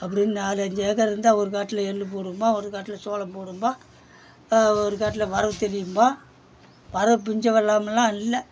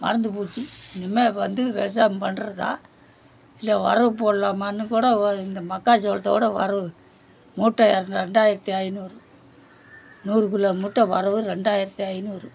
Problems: background sounds at intervals